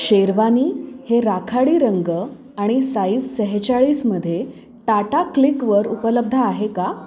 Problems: constant background noise, continuous background conversations